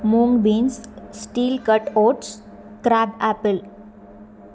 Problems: none marked